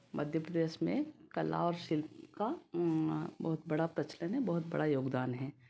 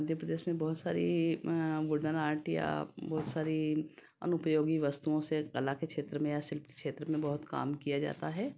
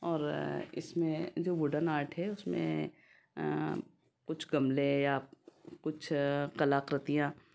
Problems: none marked